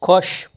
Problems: none marked